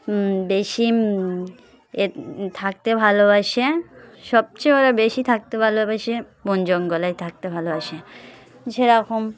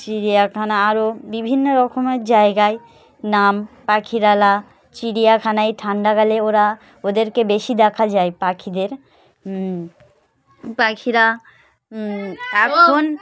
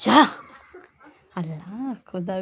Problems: background sounds at intervals, continuous background conversations